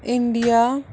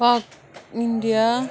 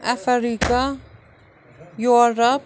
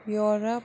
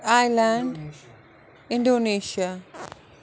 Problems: background sounds at intervals